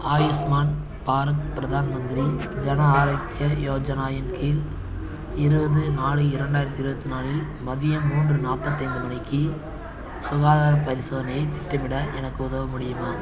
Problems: continuous background conversations